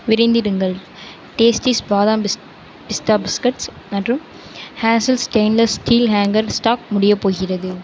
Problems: constant background noise